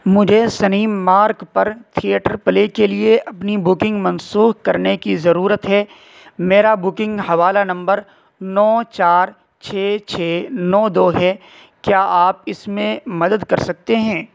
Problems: constant background noise